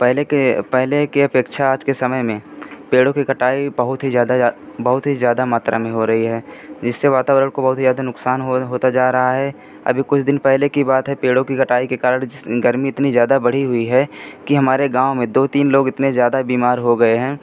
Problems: constant background noise